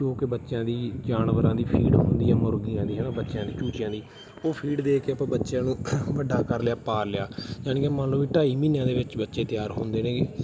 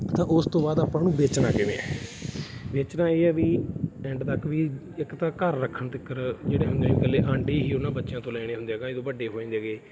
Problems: constant background noise